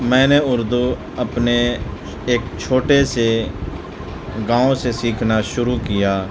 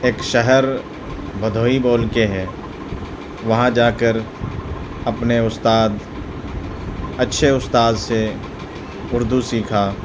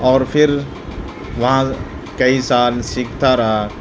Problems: constant background noise